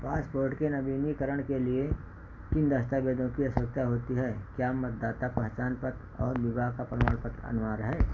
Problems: none marked